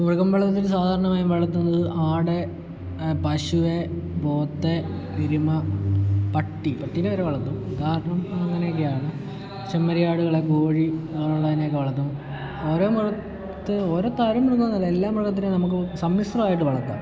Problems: low volume